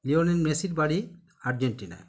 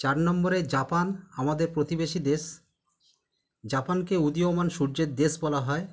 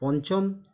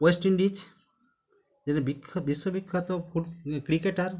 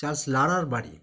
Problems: background conversations at intervals